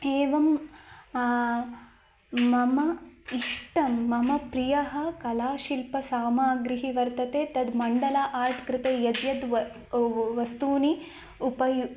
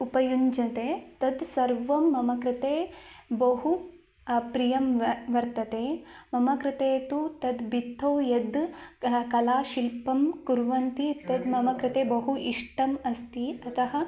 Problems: none marked